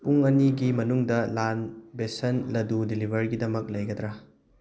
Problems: background sounds at intervals